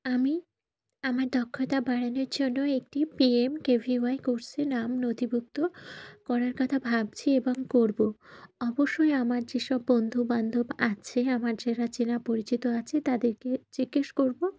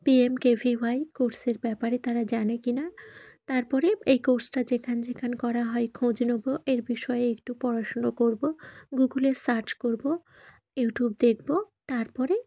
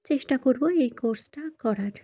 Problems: constant background noise